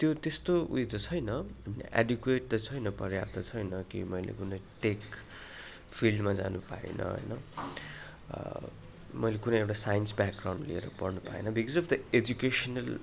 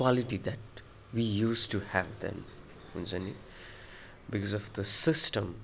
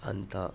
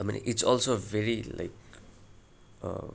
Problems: continuous background conversations